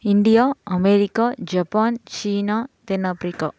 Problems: none marked